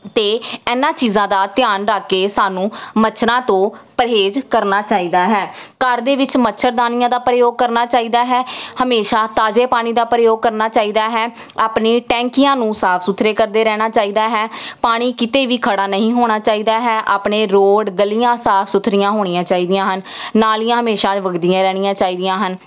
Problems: none marked